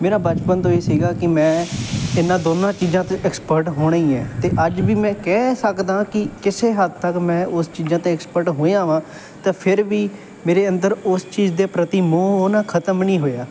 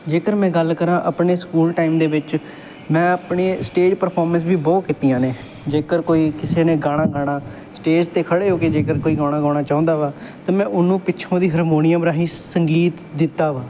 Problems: none marked